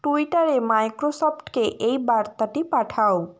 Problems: constant background noise